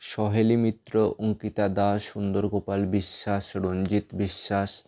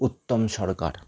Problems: none marked